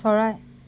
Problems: none marked